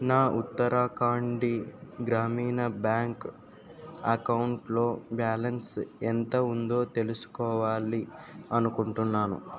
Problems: none marked